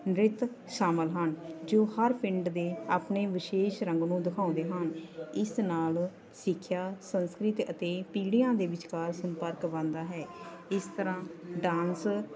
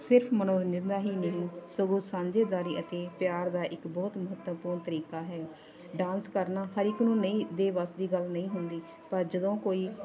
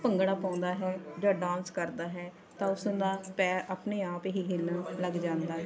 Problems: constant background noise, continuous background conversations